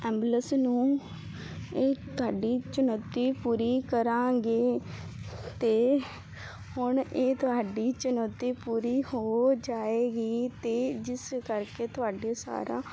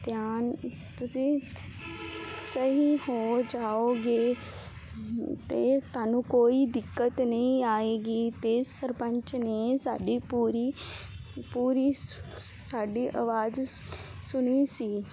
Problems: background sounds at intervals